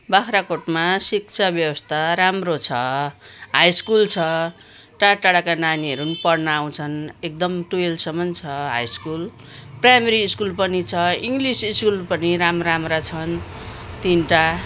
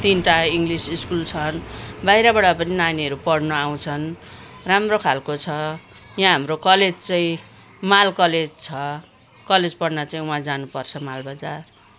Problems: none marked